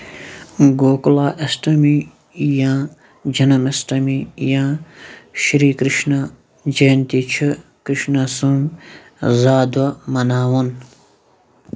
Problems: background sounds at intervals